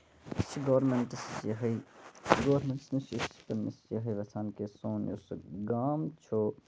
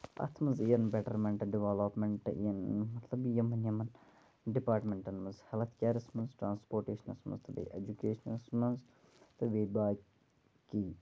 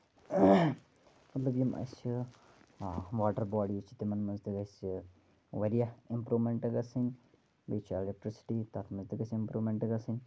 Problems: low volume